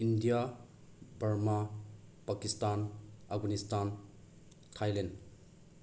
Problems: background sounds at intervals